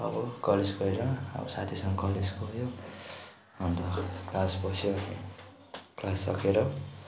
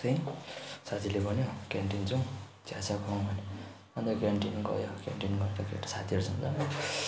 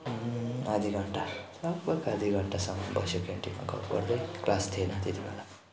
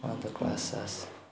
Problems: background sounds at intervals, background conversations at intervals